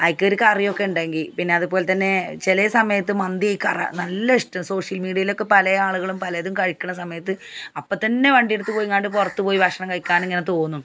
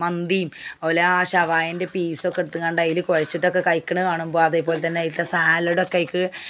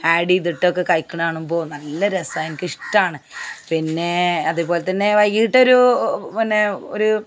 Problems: background sounds at intervals